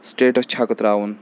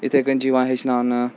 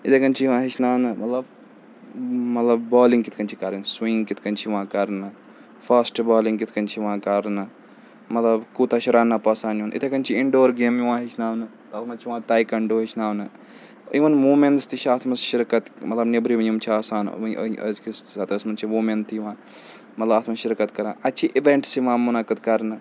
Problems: none marked